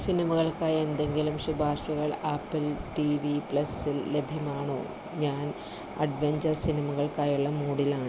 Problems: low volume